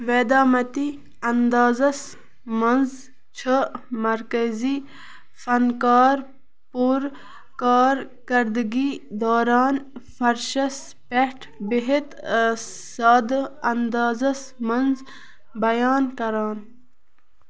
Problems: background sounds at intervals